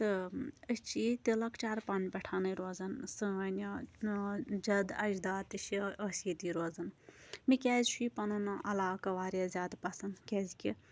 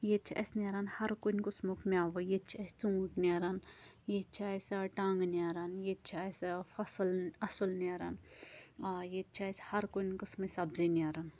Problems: none marked